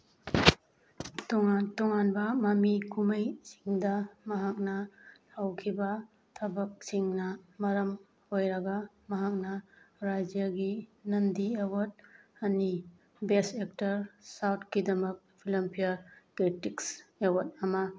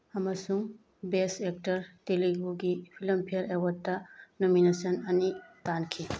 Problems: background sounds at intervals